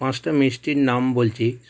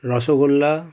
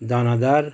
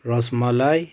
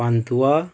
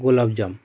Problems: background sounds at intervals